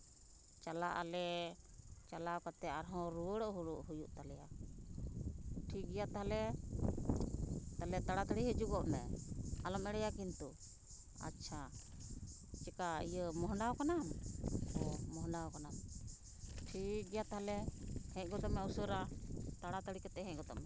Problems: constant background noise